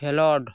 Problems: none marked